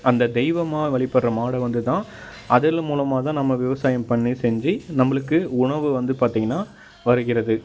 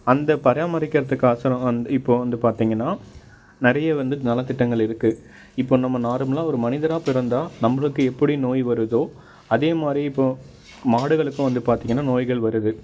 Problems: background sounds at intervals